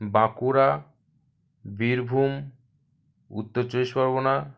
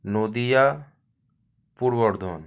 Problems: background sounds at intervals